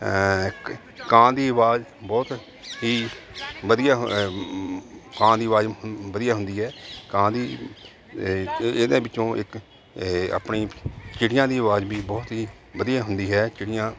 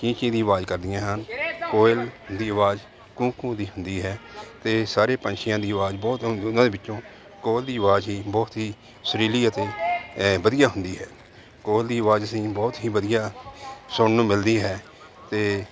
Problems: background sounds at intervals